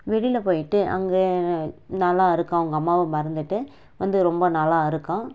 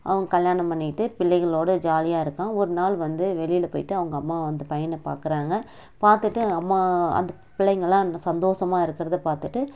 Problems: none marked